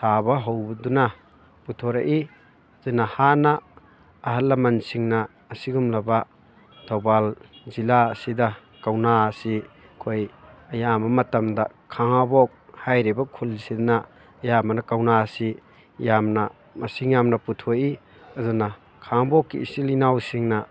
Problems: constant background noise, background conversations at intervals